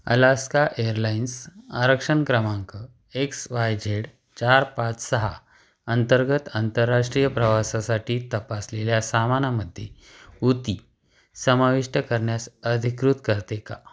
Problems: background sounds at intervals